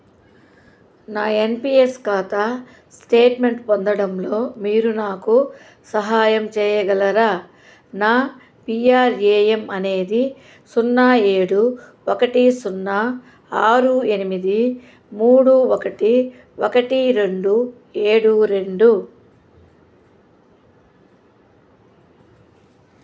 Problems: constant background noise